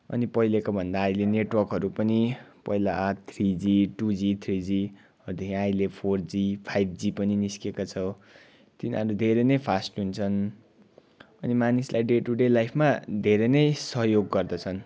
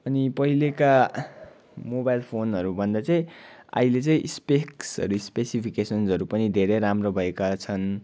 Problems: background sounds at intervals